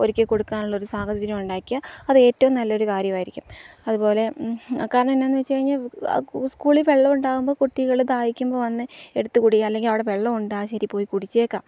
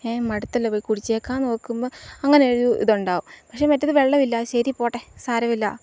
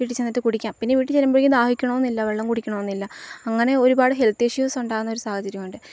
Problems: low volume